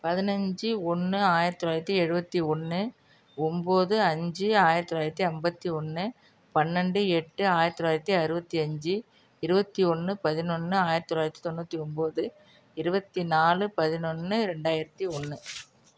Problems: none marked